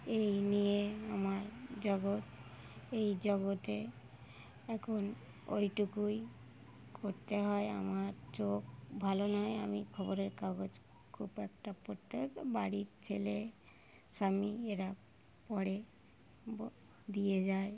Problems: background sounds at intervals